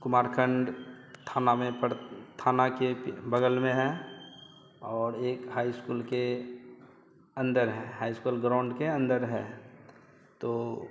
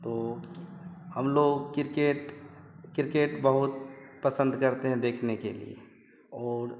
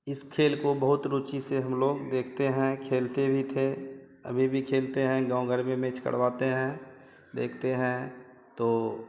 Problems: constant background noise, background conversations at intervals